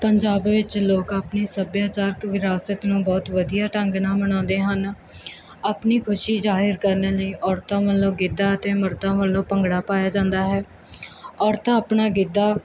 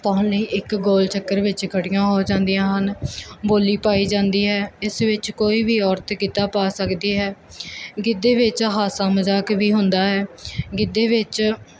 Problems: none marked